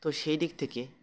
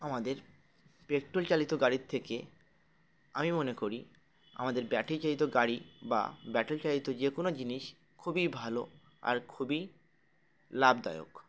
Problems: constant background noise